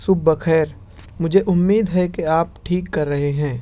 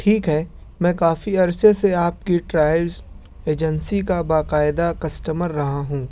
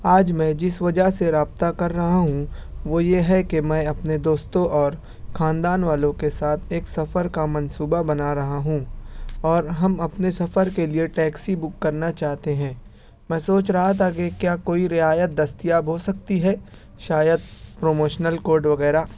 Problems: background sounds at intervals